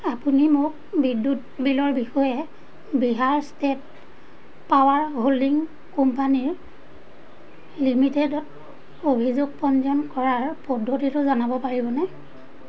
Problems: constant background noise, background conversations at intervals